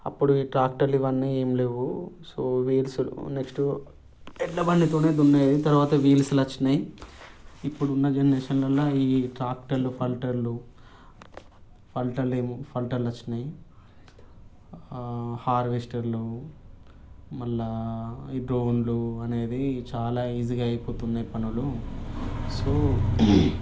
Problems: background sounds at intervals